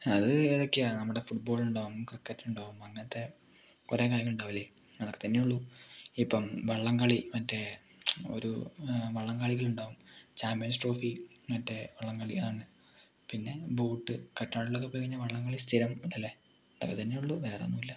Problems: none marked